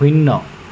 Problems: constant background noise